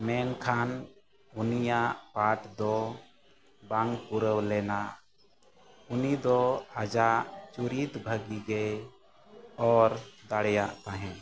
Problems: constant background noise